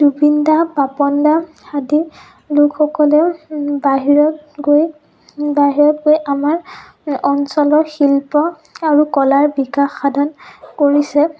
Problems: background sounds at intervals, low volume